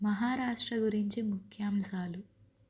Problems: low volume